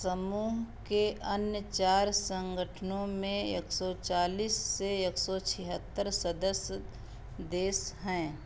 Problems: background sounds at intervals, echo